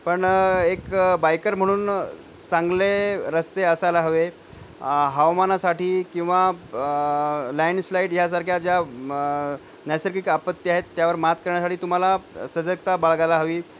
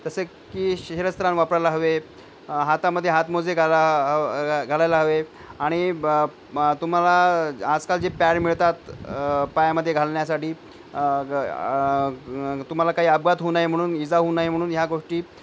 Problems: none marked